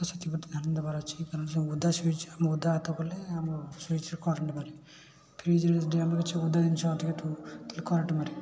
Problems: constant background noise, continuous background conversations